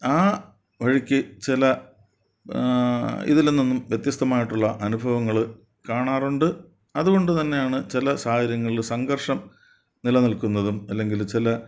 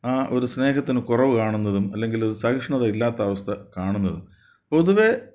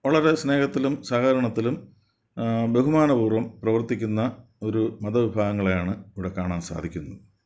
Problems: none marked